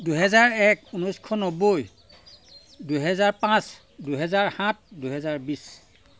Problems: constant background noise